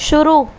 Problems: constant background noise